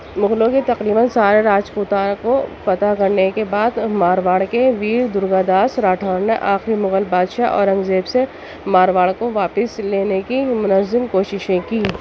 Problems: background sounds at intervals, background conversations at intervals, low volume